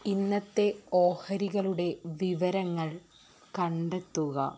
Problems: low volume